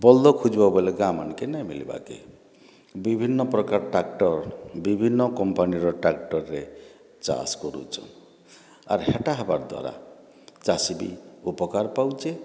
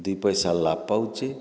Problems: background sounds at intervals